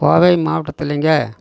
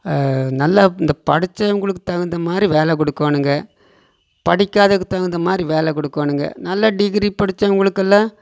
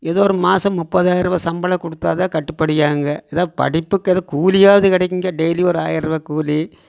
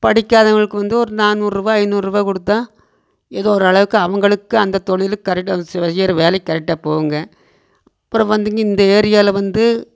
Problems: none marked